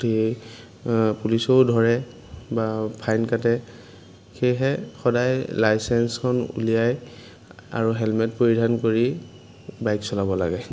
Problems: background sounds at intervals